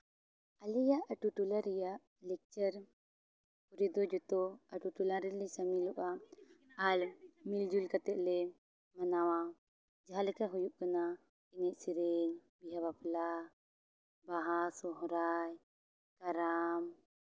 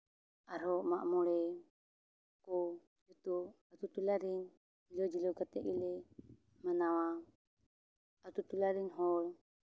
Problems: background sounds at intervals, low volume